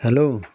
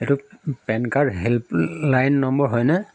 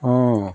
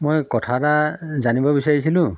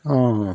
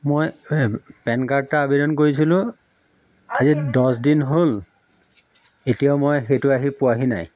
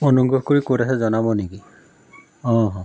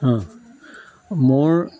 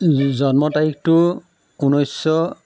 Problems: background sounds at intervals